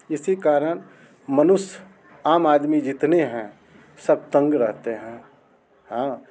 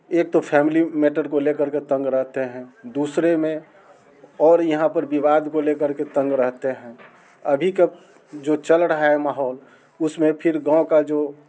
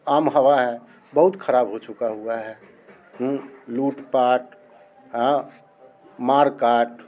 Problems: constant background noise